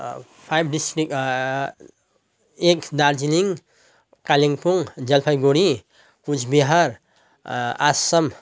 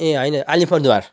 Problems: none marked